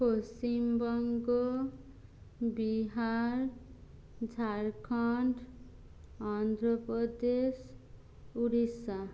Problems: none marked